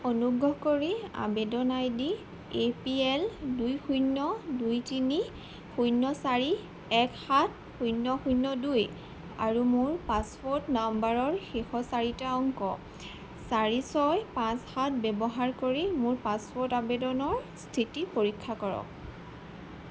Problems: background sounds at intervals